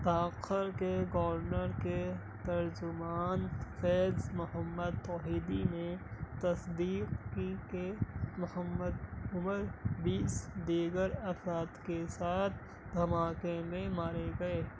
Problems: constant background noise, low volume